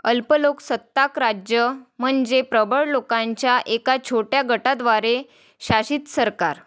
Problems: none marked